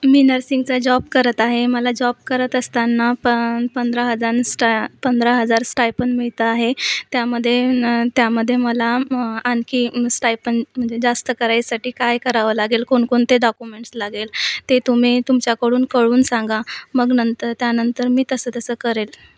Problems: none marked